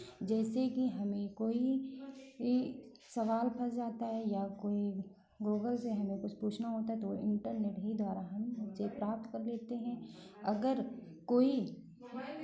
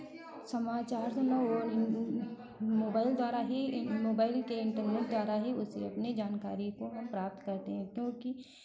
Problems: none marked